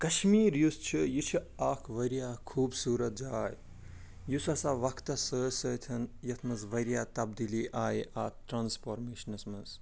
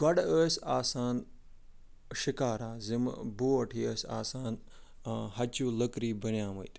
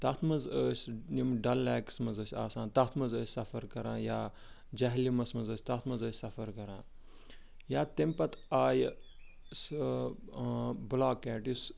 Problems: background sounds at intervals